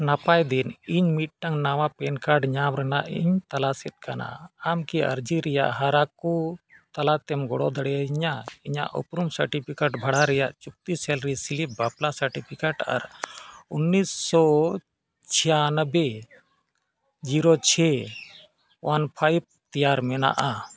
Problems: background sounds at intervals